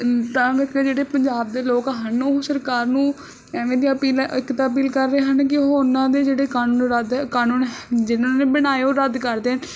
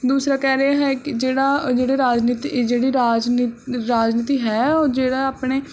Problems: constant background noise